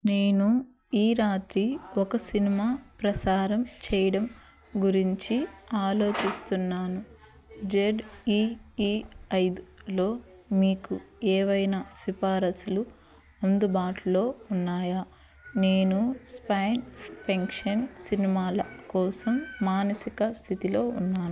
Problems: background sounds at intervals